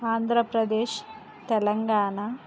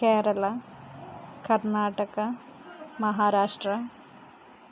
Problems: constant background noise